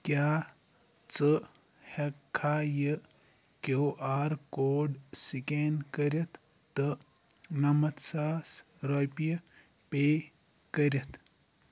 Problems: background sounds at intervals